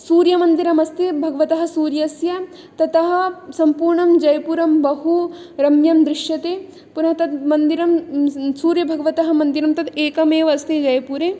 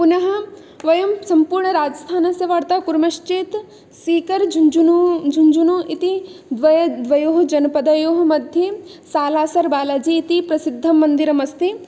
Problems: none marked